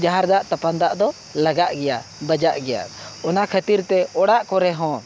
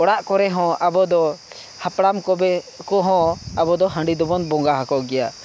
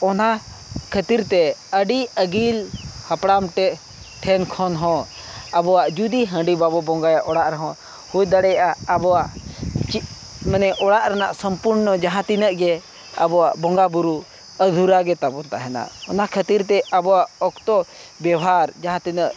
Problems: background sounds at intervals